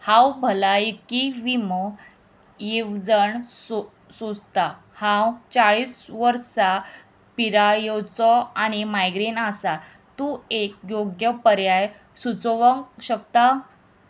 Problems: constant background noise